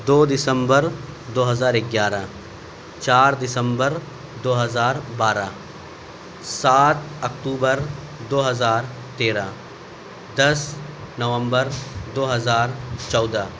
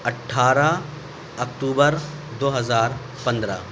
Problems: none marked